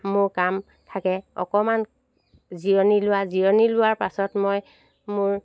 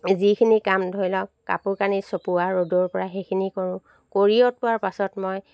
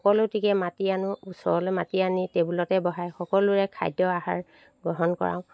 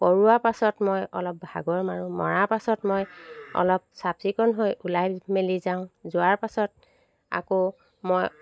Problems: constant background noise